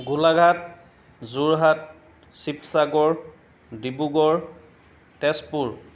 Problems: background sounds at intervals